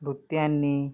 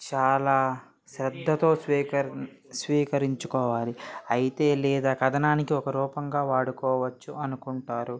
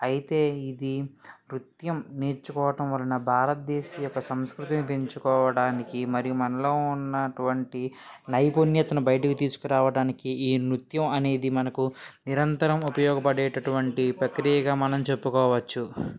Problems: background conversations at intervals